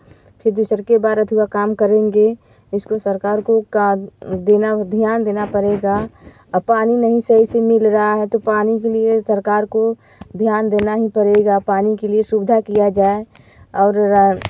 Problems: none marked